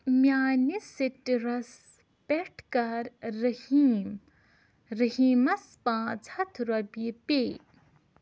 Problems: none marked